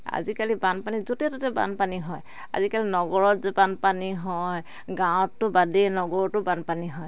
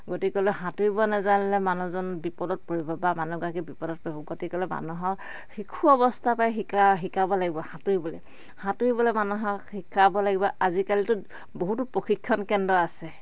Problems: none marked